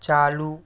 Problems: none marked